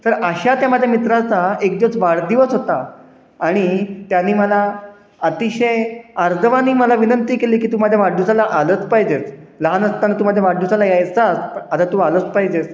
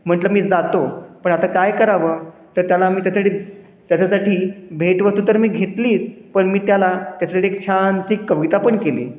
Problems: constant background noise, echo